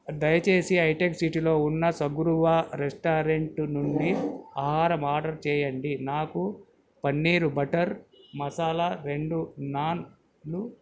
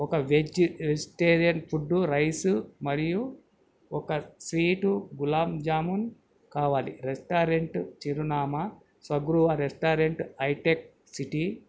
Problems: none marked